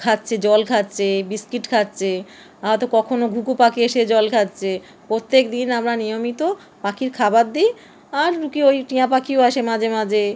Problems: constant background noise